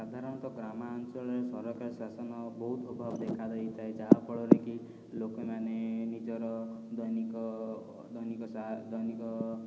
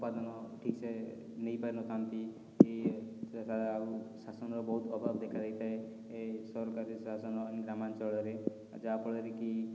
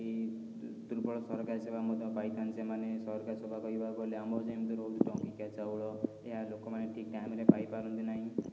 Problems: none marked